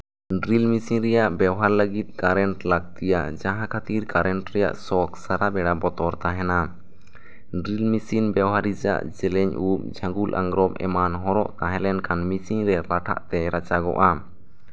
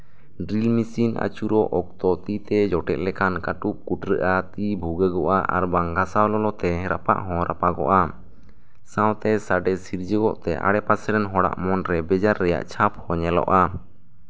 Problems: none marked